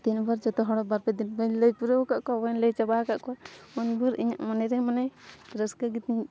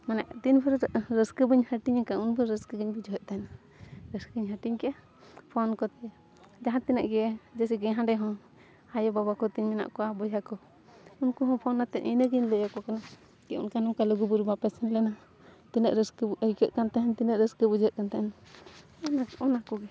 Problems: none marked